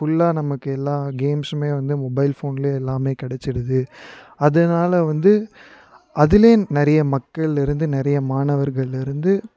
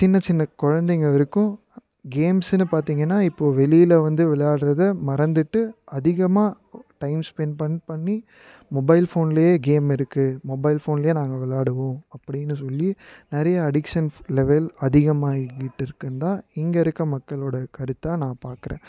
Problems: background sounds at intervals